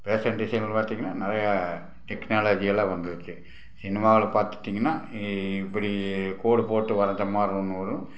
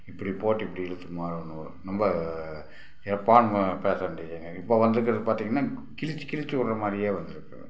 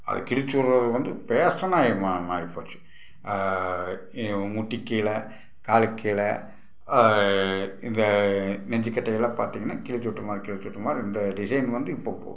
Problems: background sounds at intervals